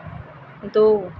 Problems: constant background noise